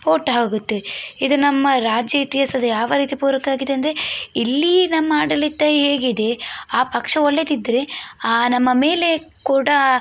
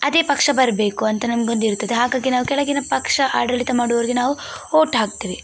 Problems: background sounds at intervals